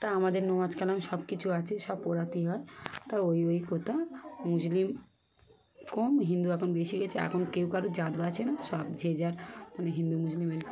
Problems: constant background noise, background conversations at intervals